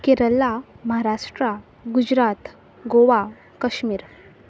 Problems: none marked